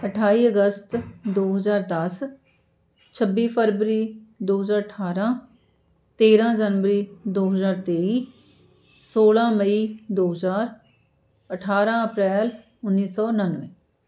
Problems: constant background noise